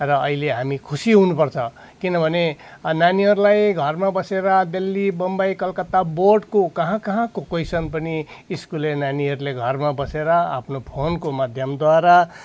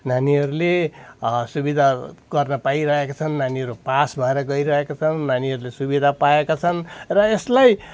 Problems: background sounds at intervals